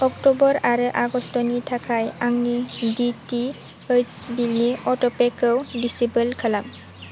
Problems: constant background noise